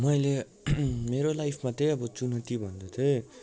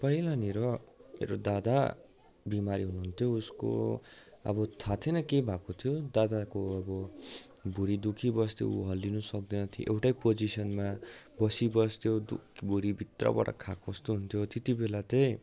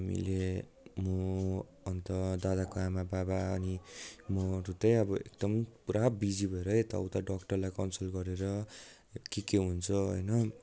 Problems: continuous background conversations